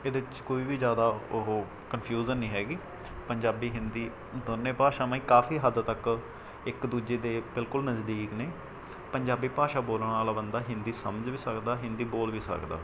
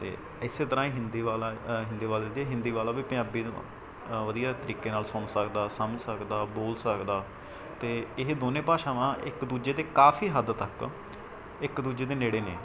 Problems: background sounds at intervals